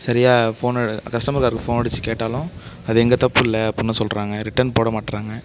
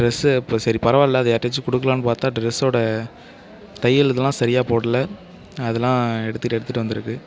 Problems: constant background noise